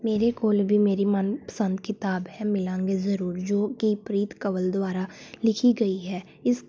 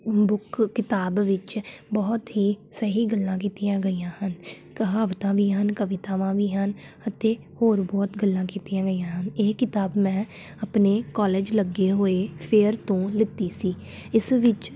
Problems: none marked